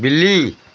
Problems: none marked